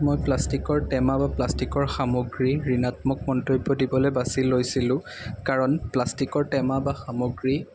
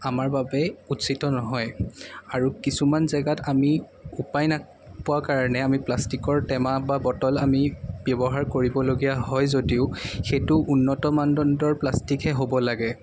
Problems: background sounds at intervals